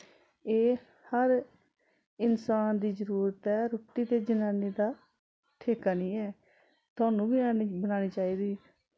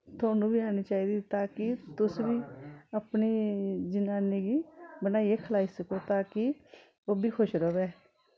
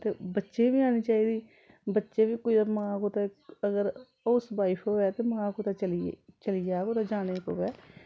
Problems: constant background noise